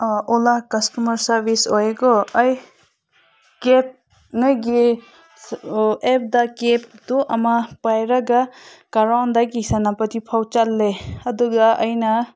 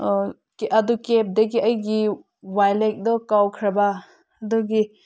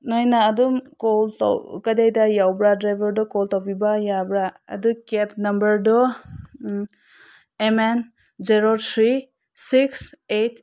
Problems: constant background noise